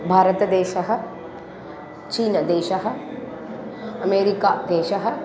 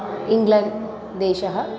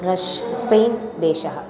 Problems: continuous background conversations